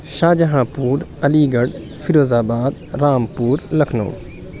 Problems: none marked